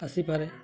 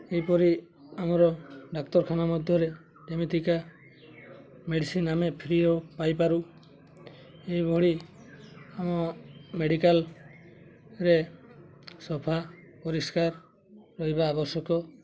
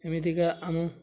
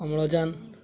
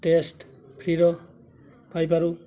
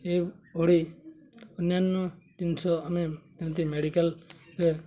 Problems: constant background noise, continuous background conversations